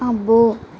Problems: constant background noise